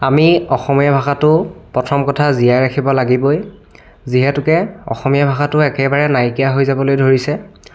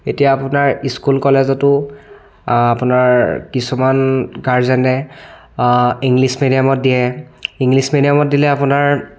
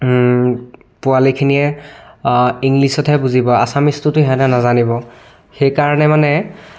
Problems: continuous background conversations